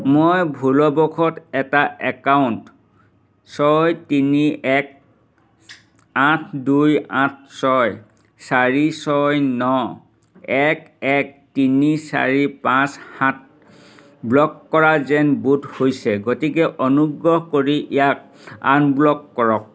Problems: none marked